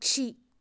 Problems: low volume